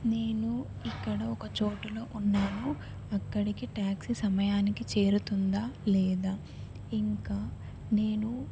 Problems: background sounds at intervals